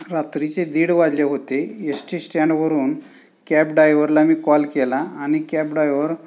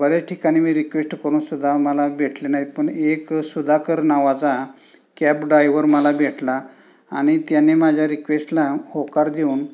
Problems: constant background noise, background conversations at intervals